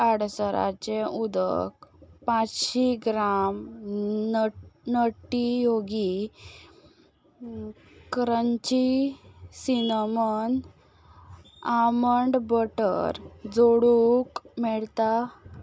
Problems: background sounds at intervals